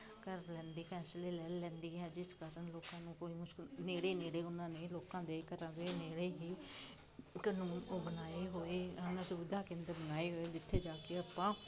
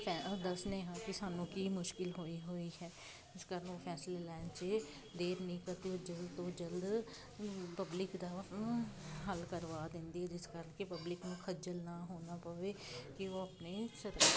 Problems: constant background noise